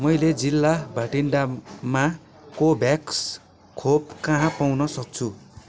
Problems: constant background noise